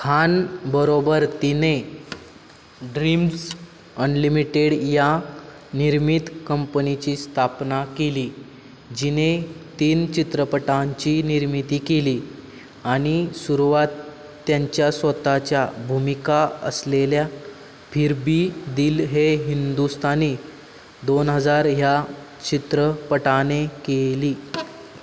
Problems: none marked